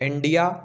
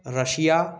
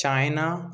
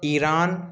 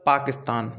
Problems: continuous background conversations